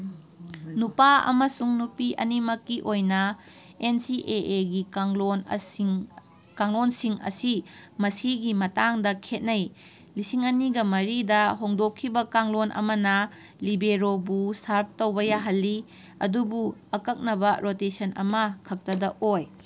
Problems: none marked